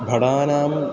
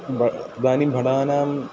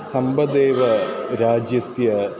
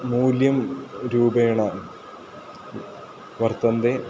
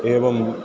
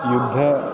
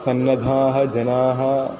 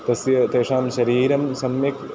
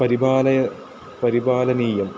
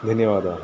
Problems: constant background noise, continuous background conversations